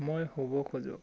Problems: none marked